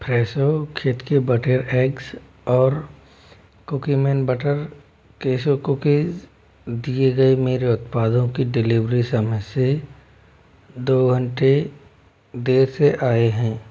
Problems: constant background noise